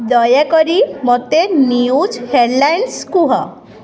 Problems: constant background noise